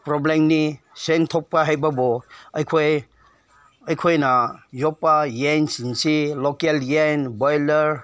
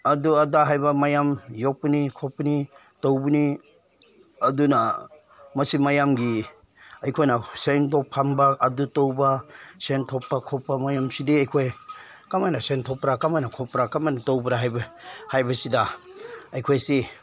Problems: none marked